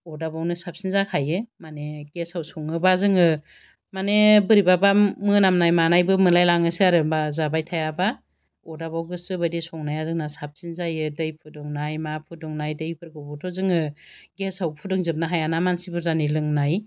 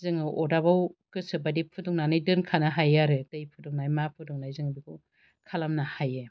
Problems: none marked